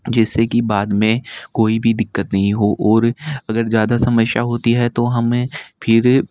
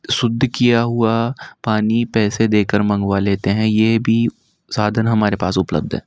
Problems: none marked